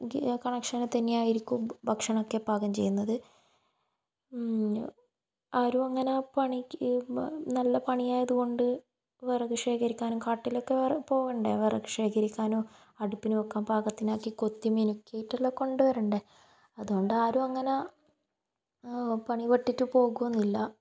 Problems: low volume